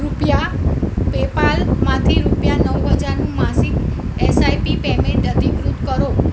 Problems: constant background noise